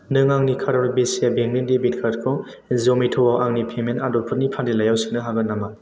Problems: constant background noise